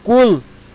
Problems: constant background noise